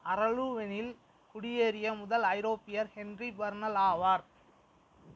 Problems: constant background noise